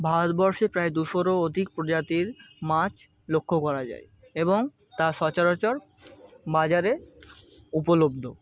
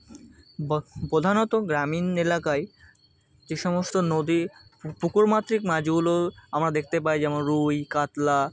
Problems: constant background noise, continuous background conversations